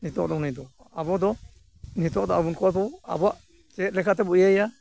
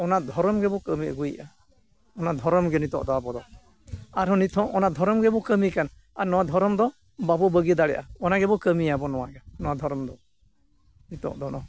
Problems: constant background noise